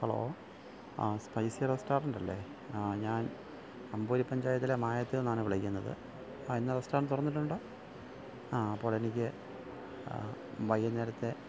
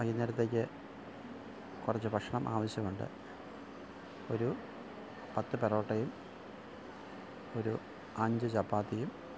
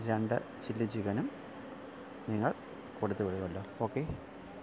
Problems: none marked